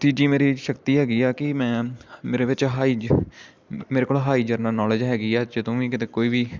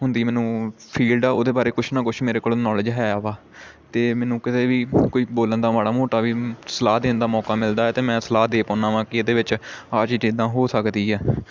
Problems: background sounds at intervals